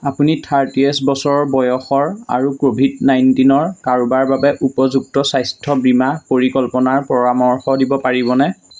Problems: none marked